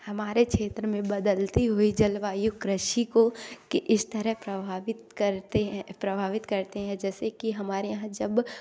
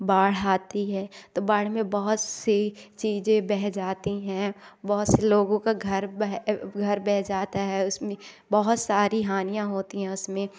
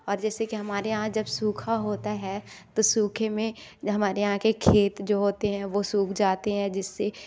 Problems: background sounds at intervals